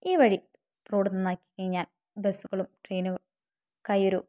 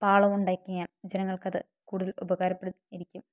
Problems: none marked